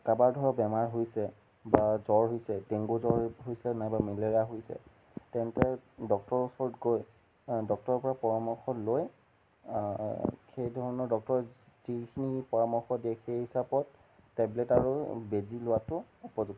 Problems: none marked